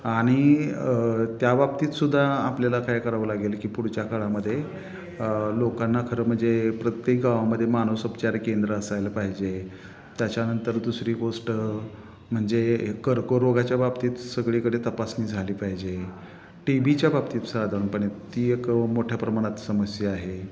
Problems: constant background noise, echo